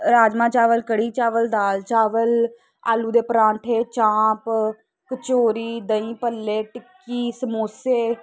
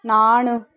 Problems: constant background noise